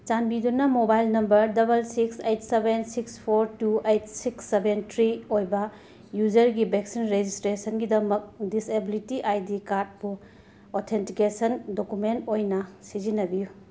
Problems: constant background noise